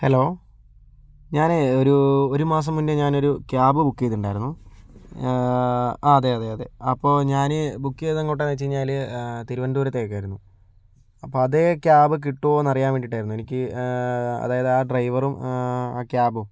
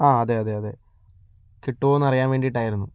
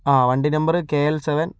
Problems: none marked